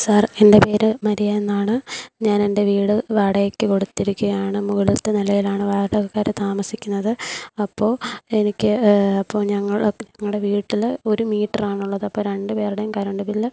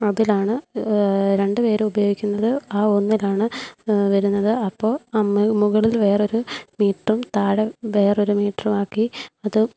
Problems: none marked